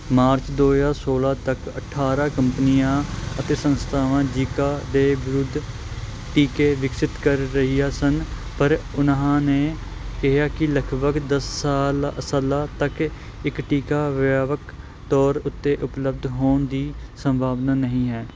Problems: constant background noise